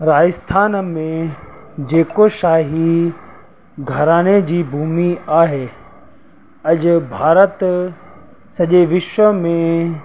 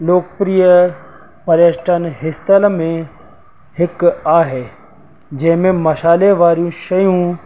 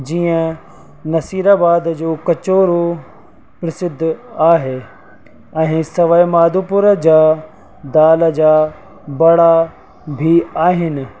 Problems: constant background noise